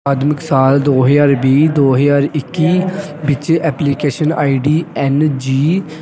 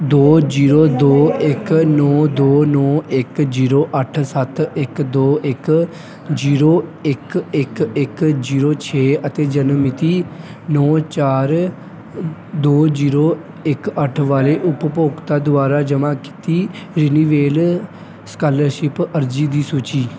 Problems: none marked